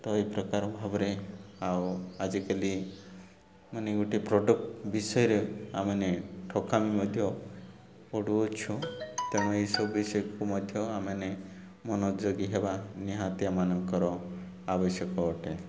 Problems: none marked